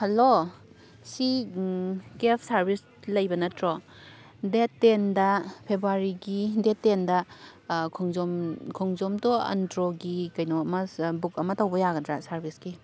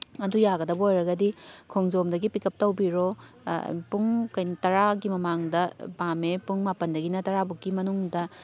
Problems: background sounds at intervals